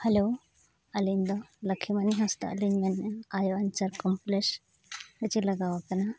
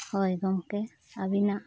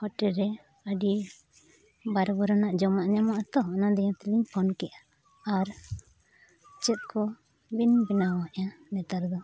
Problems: none marked